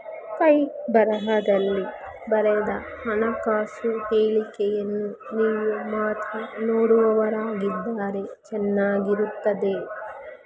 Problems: constant background noise